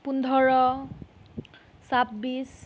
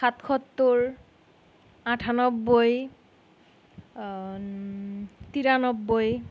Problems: none marked